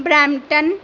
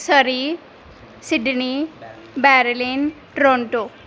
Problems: background conversations at intervals